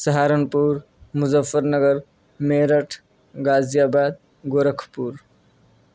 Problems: none marked